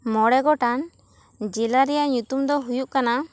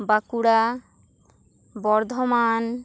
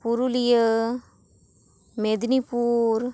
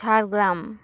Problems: none marked